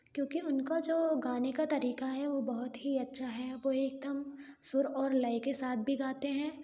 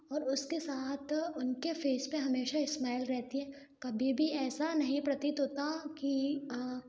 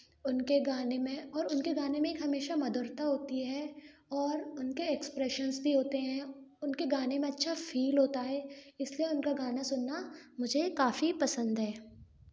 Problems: background sounds at intervals